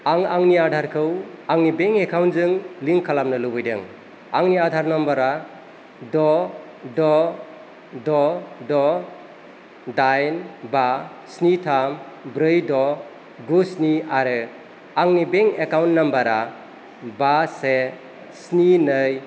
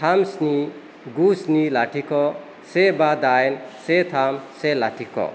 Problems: constant background noise